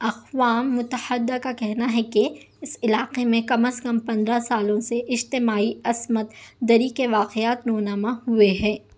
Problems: none marked